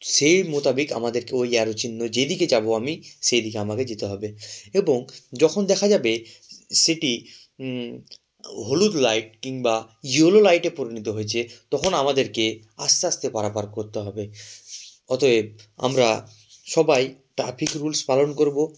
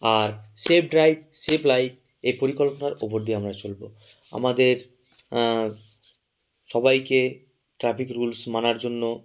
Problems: background sounds at intervals